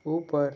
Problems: background sounds at intervals